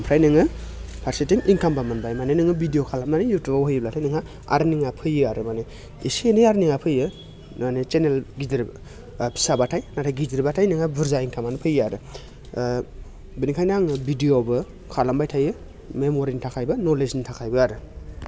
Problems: none marked